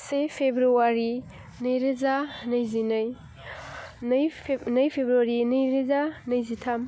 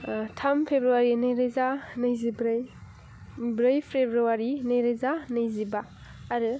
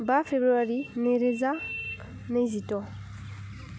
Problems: none marked